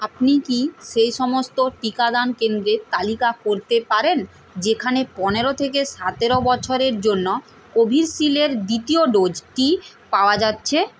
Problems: constant background noise